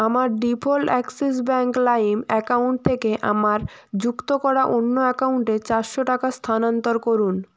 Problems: background sounds at intervals